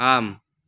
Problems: none marked